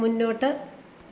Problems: constant background noise